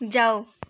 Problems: background sounds at intervals